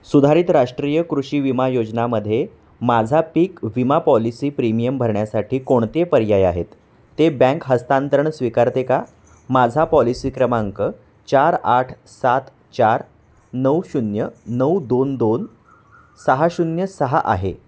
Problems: constant background noise